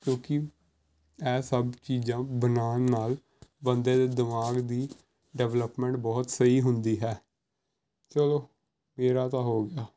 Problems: background sounds at intervals